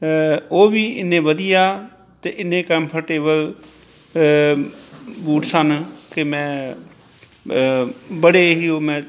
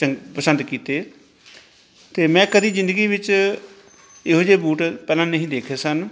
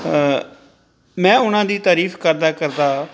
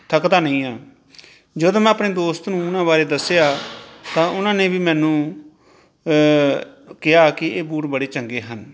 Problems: background sounds at intervals